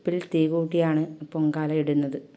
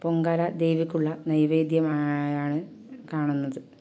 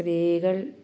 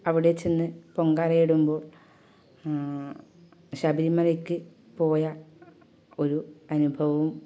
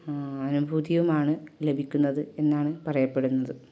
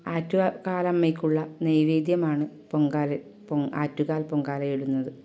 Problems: background sounds at intervals, low volume